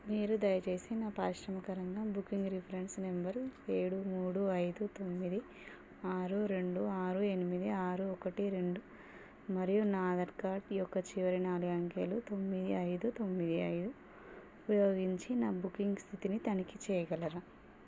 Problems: low volume